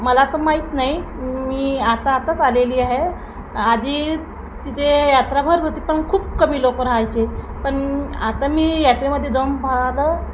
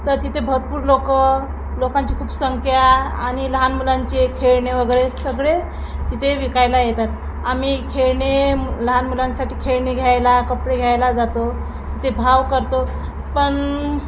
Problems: constant background noise